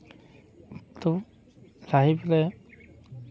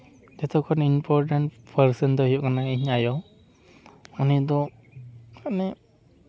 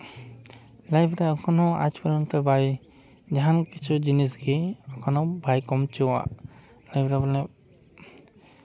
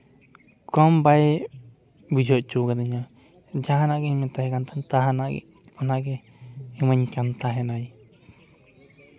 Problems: background sounds at intervals